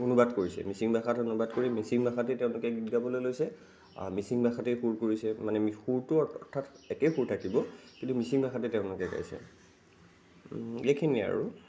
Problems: constant background noise